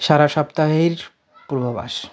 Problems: constant background noise